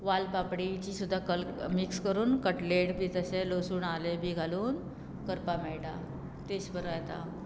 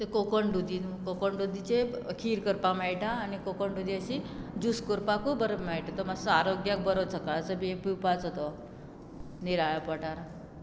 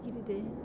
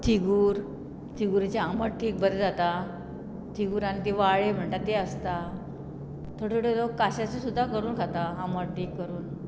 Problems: background sounds at intervals